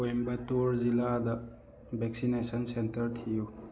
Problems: constant background noise